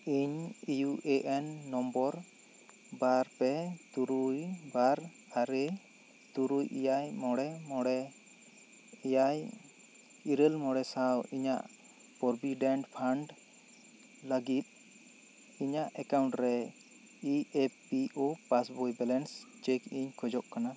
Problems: constant background noise